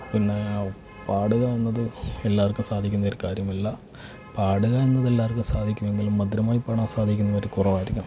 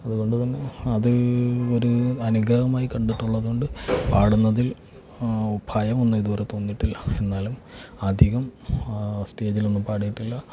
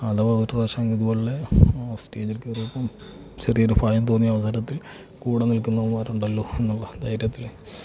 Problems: background sounds at intervals, low volume